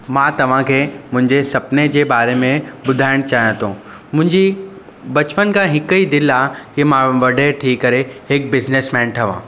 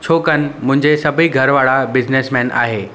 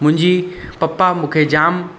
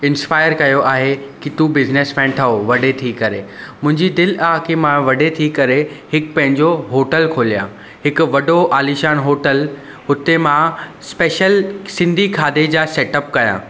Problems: constant background noise, echo